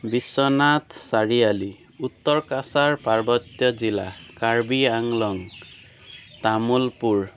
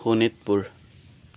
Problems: constant background noise